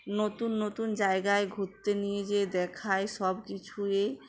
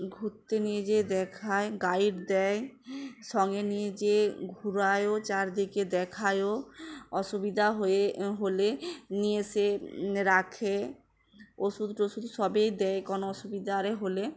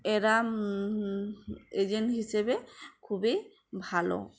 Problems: constant background noise, background conversations at intervals